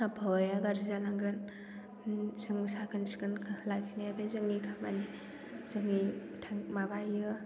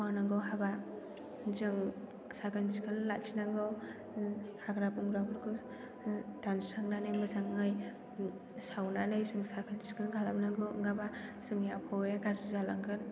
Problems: background sounds at intervals